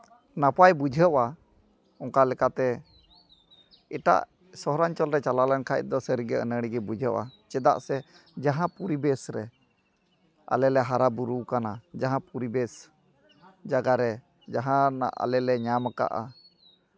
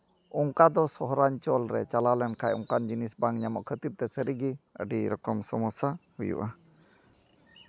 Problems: none marked